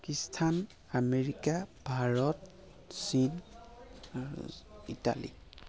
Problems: continuous background conversations